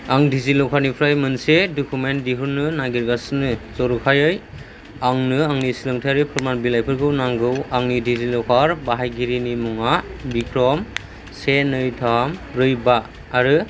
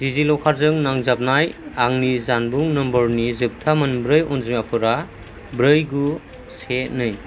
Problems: low volume